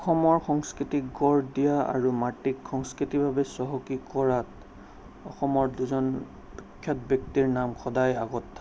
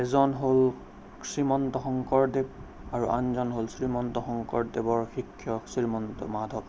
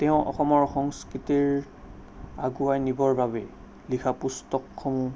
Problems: none marked